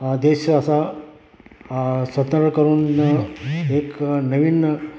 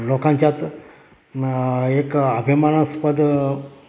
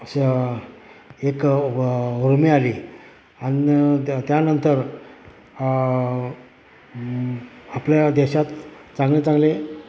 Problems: constant background noise, continuous background conversations